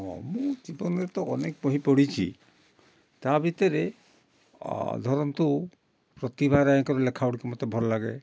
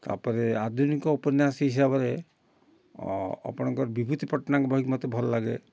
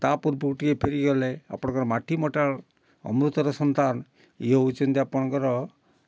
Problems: none marked